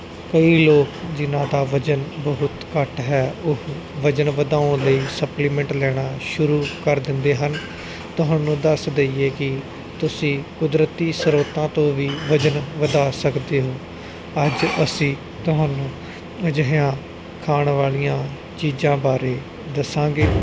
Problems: constant background noise